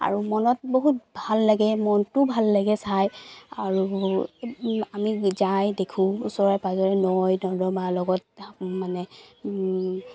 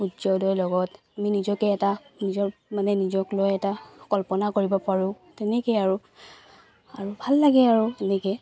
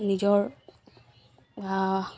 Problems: constant background noise